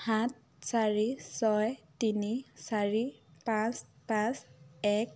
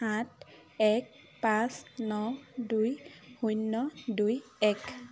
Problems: low volume